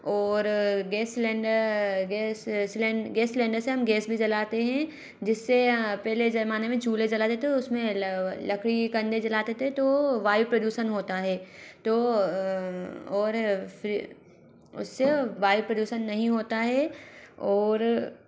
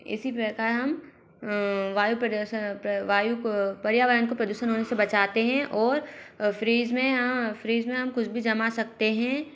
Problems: background sounds at intervals